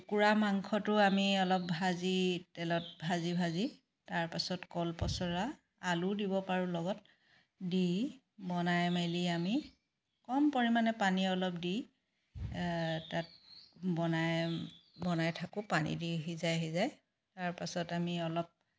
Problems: background sounds at intervals, background conversations at intervals